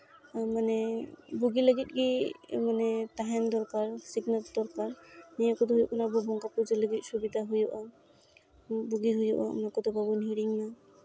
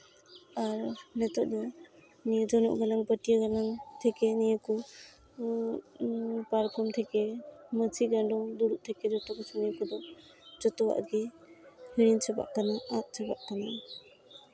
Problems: constant background noise, background conversations at intervals